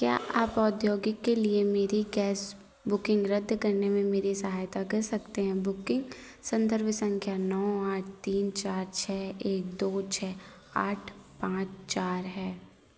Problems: background sounds at intervals